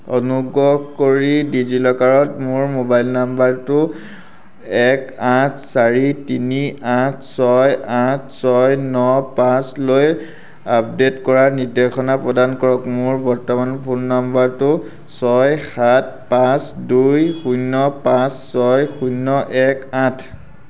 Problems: none marked